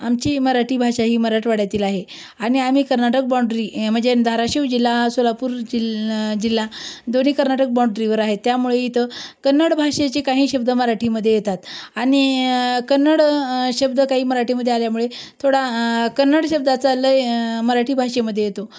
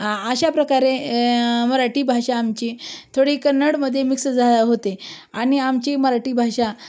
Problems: none marked